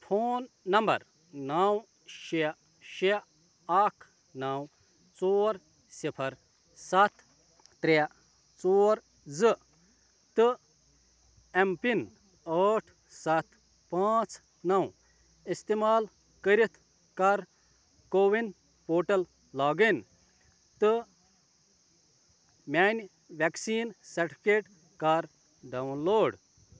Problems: constant background noise